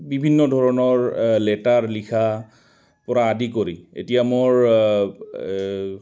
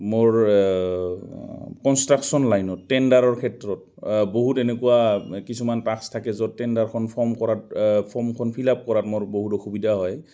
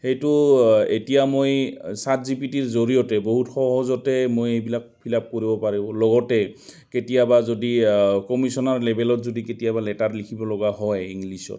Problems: constant background noise, background conversations at intervals